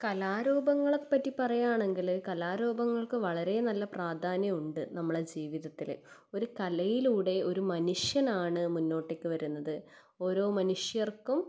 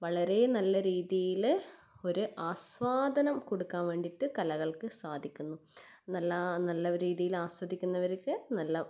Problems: none marked